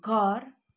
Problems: none marked